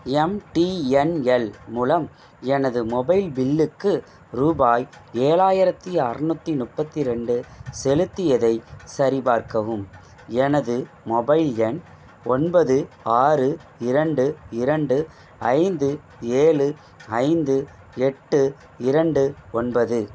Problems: constant background noise